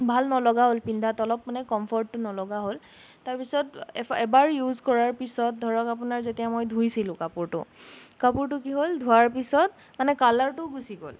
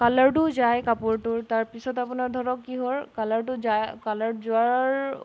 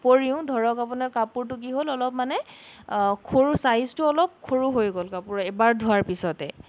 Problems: background sounds at intervals